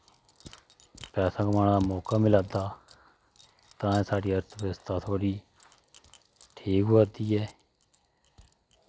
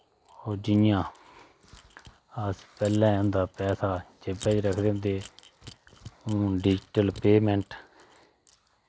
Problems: constant background noise